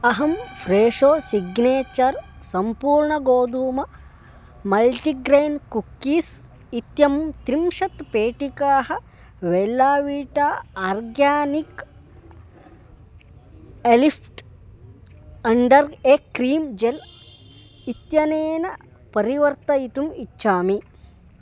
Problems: constant background noise